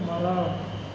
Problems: low volume